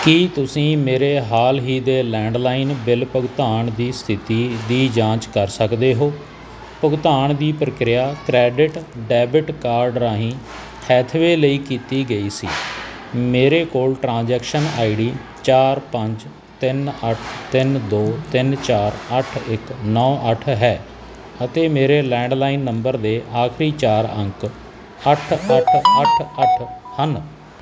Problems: background sounds at intervals